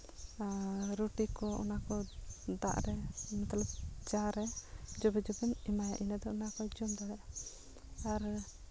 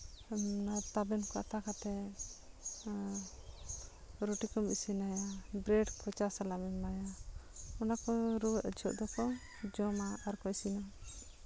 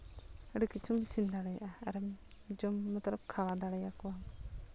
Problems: none marked